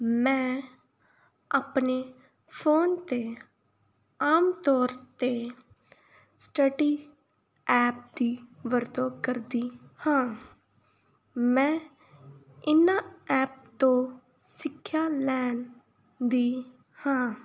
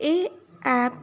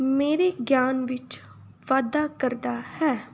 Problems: background sounds at intervals